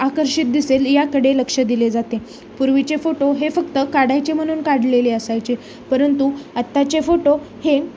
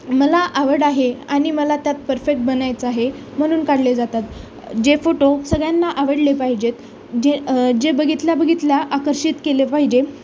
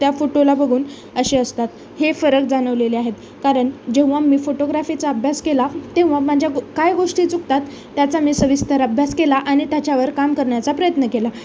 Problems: constant background noise, continuous background conversations